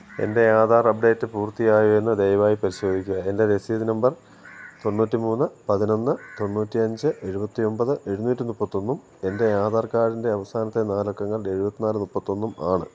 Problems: none marked